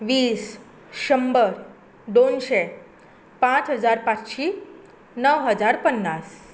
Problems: constant background noise